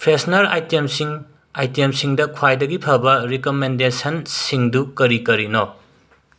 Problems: none marked